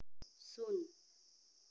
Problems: low volume